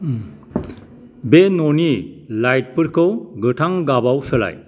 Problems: none marked